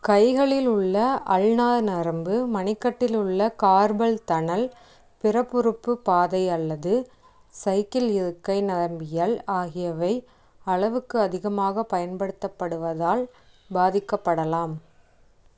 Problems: none marked